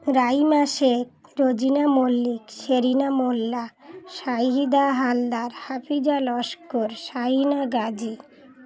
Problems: none marked